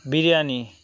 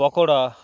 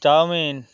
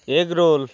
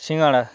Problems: constant background noise, background conversations at intervals